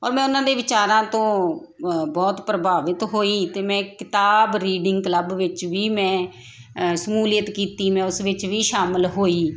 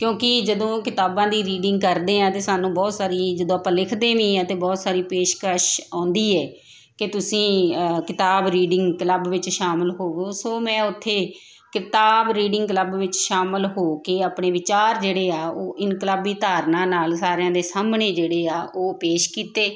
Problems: constant background noise